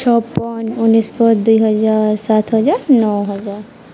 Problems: constant background noise